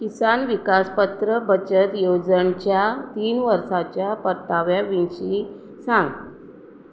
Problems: constant background noise